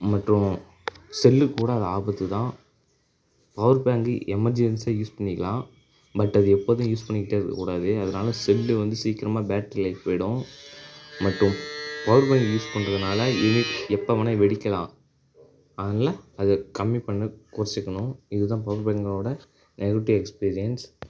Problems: none marked